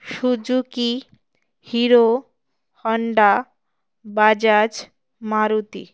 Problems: background sounds at intervals